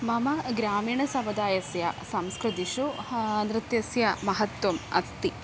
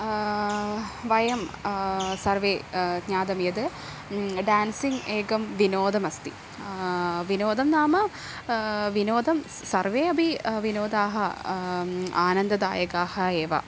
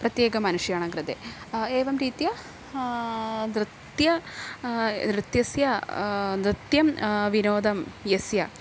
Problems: none marked